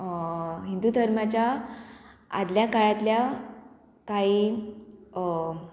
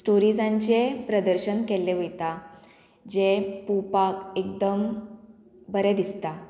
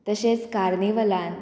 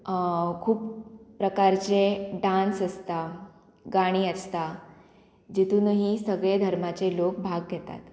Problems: none marked